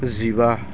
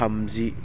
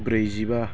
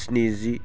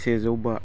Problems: low volume